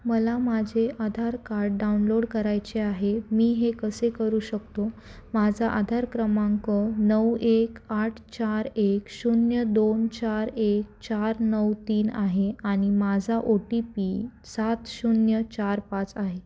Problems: constant background noise